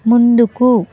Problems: none marked